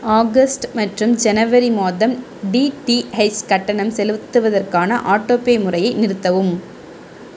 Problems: constant background noise